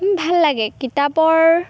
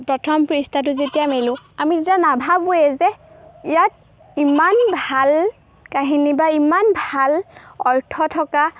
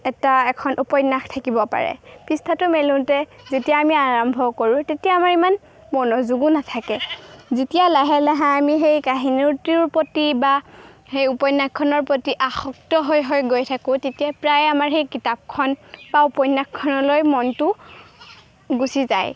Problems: background sounds at intervals